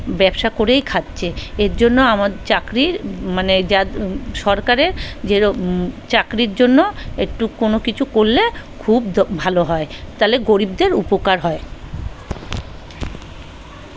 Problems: background conversations at intervals